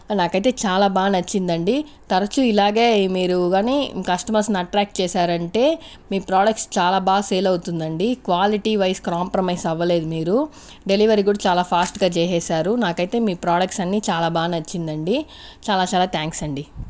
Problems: constant background noise